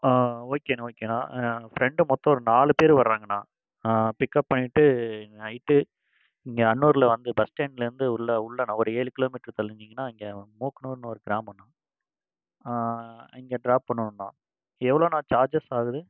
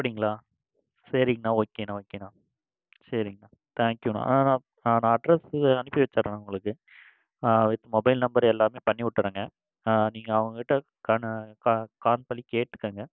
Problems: none marked